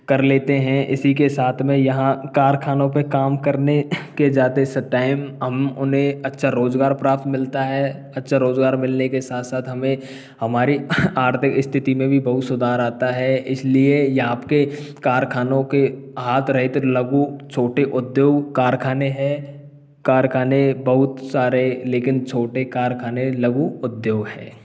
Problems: background sounds at intervals